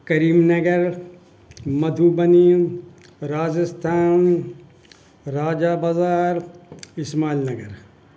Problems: background sounds at intervals, background conversations at intervals